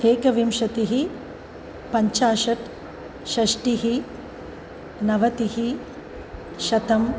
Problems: constant background noise